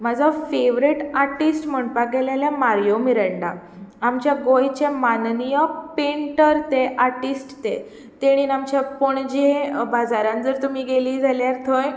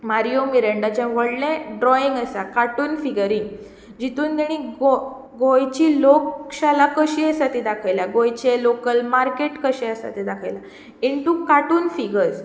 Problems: none marked